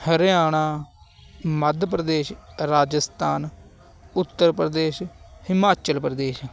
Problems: constant background noise